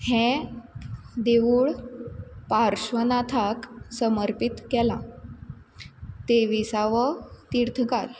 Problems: constant background noise